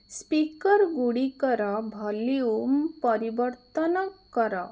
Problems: none marked